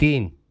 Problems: none marked